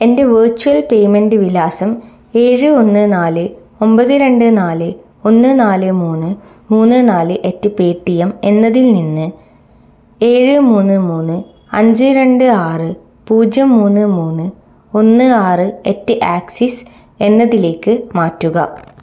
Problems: none marked